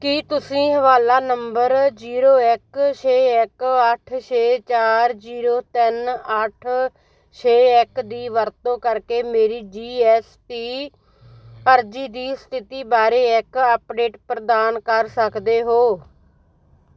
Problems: constant background noise